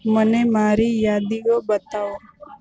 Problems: none marked